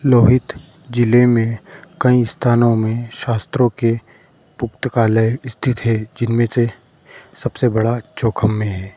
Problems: background sounds at intervals